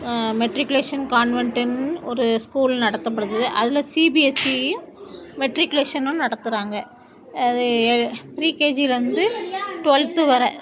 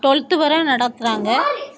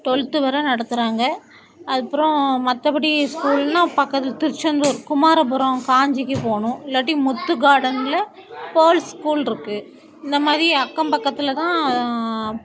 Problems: continuous background conversations